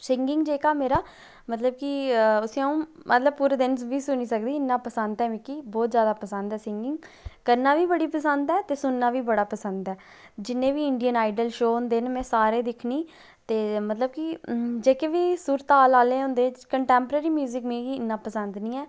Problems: low volume